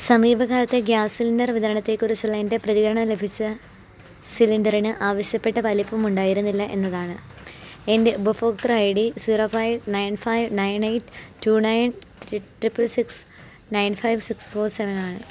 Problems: background sounds at intervals